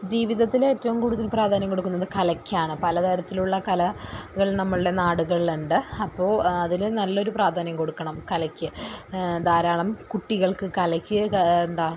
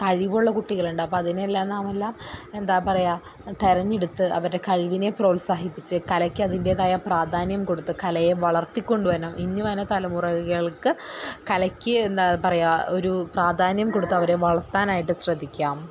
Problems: background sounds at intervals